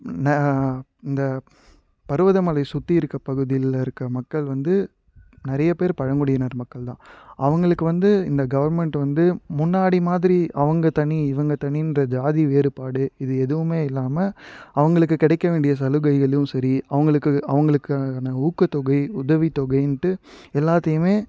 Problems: background sounds at intervals